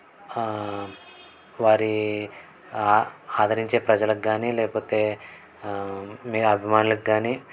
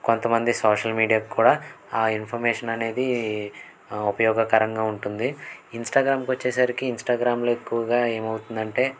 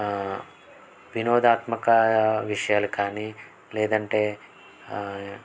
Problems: background sounds at intervals